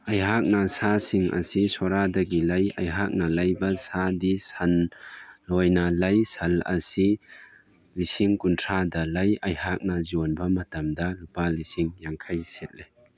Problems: none marked